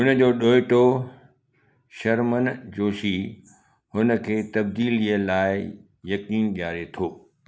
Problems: background sounds at intervals, echo